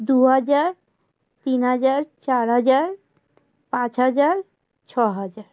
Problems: constant background noise